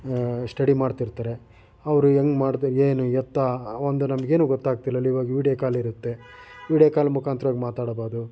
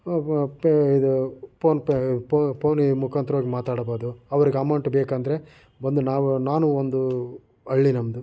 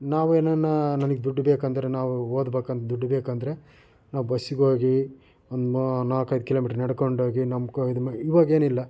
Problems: background sounds at intervals